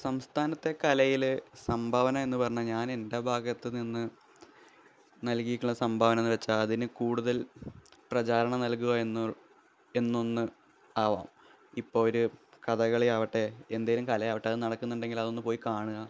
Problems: low volume